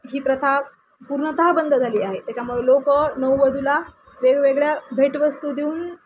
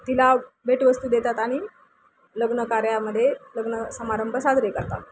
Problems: constant background noise